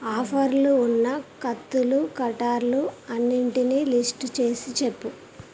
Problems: constant background noise